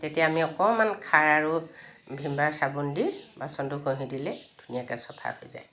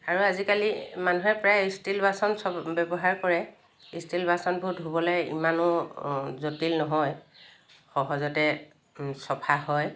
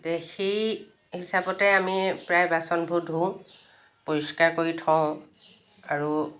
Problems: constant background noise